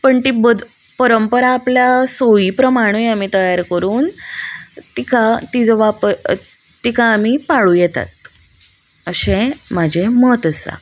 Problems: none marked